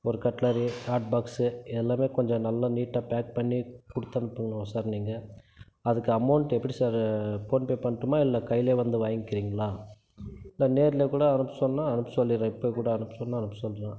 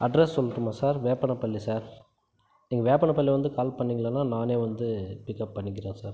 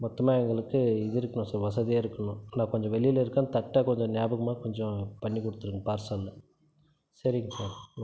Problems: none marked